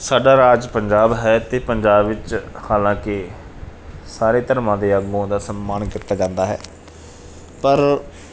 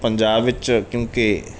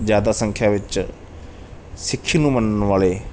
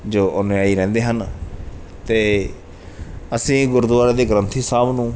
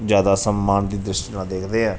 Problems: background sounds at intervals